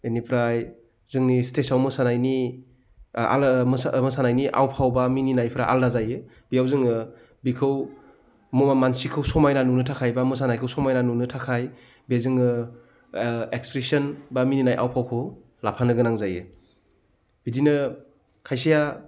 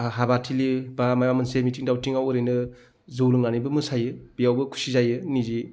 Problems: none marked